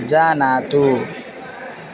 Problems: constant background noise, continuous background conversations